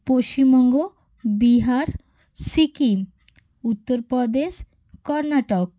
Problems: none marked